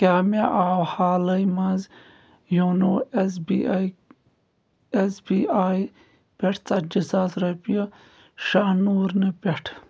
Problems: background sounds at intervals